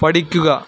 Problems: constant background noise